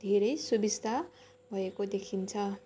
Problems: constant background noise, continuous background conversations